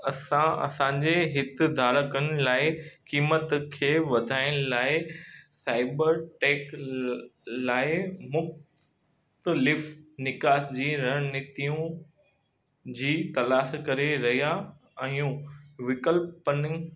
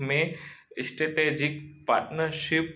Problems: constant background noise, echo